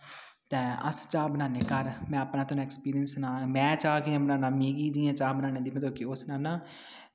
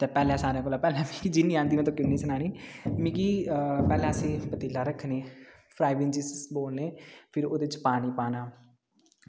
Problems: background sounds at intervals, echo